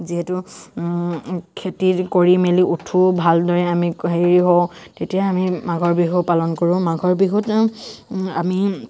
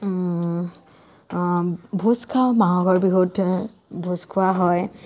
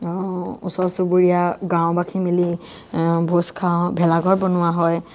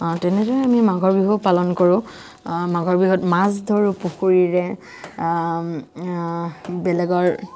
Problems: none marked